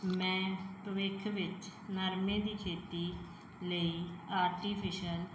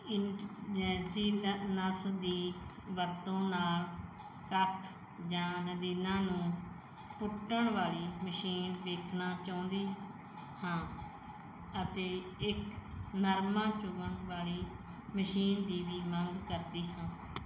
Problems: background sounds at intervals